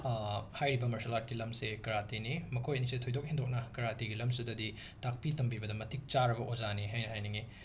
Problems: background sounds at intervals